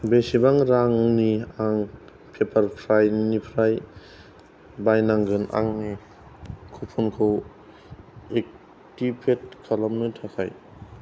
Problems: none marked